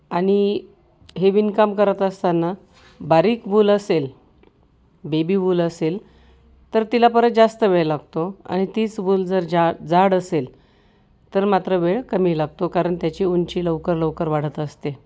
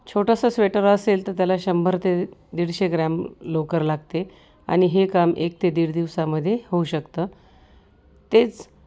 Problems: constant background noise, background conversations at intervals